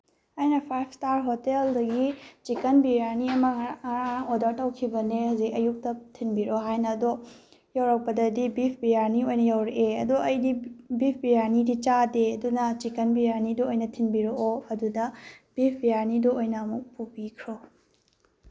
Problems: none marked